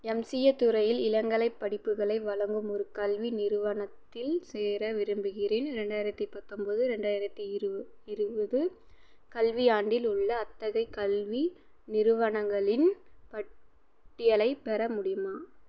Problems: none marked